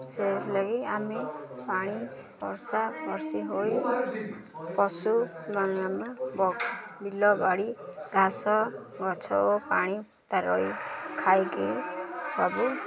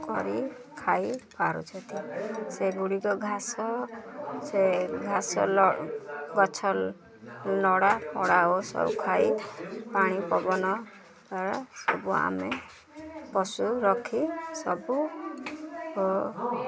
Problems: constant background noise, continuous background conversations